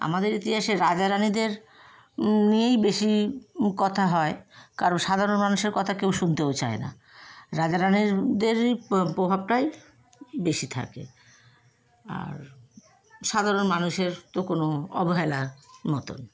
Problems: constant background noise, background conversations at intervals